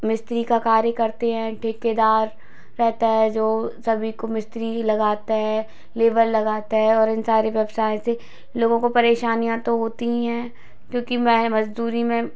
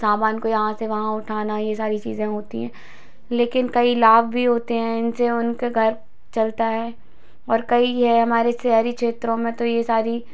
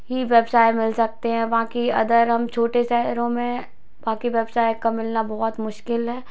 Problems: constant background noise